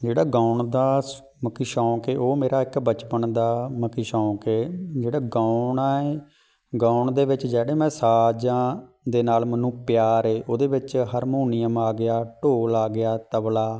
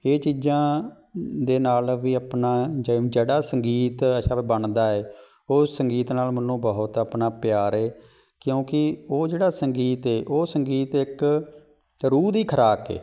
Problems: background sounds at intervals